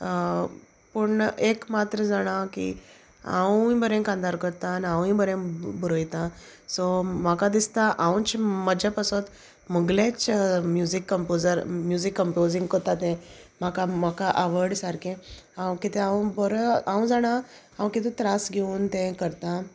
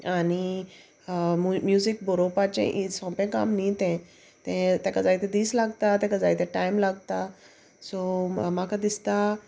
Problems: constant background noise, background conversations at intervals